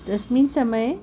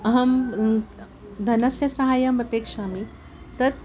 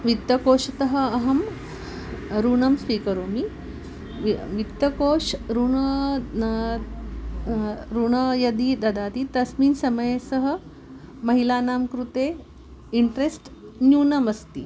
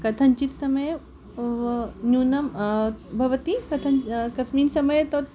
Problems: none marked